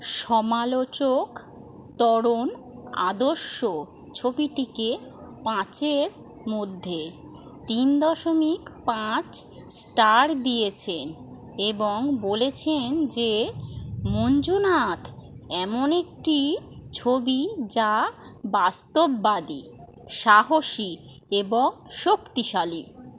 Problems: none marked